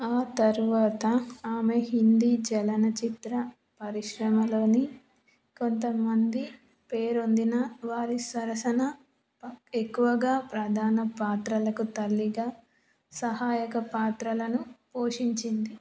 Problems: none marked